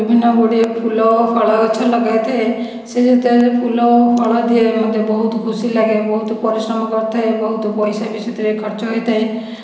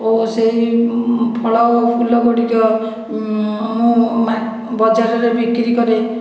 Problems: echo